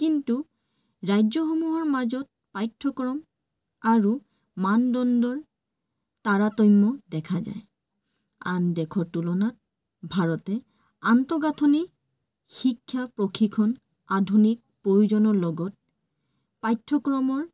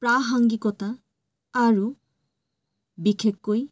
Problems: none marked